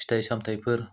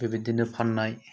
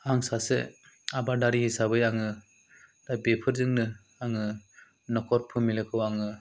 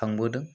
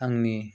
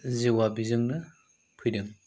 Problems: low volume